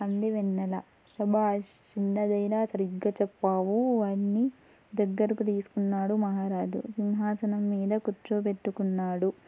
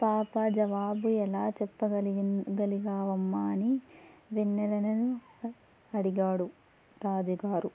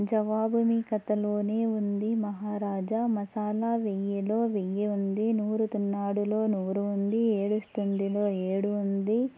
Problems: background sounds at intervals